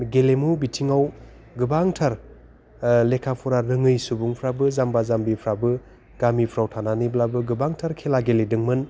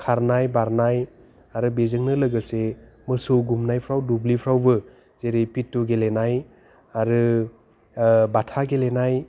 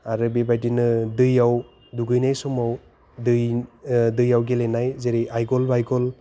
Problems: none marked